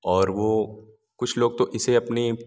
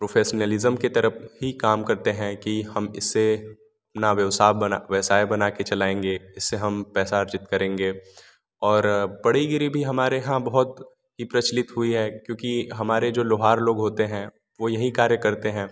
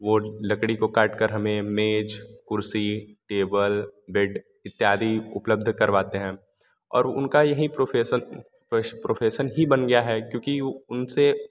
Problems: none marked